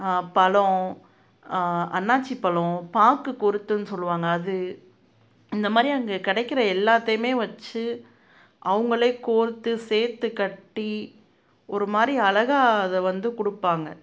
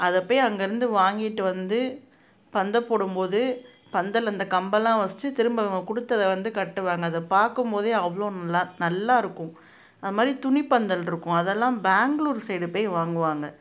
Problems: none marked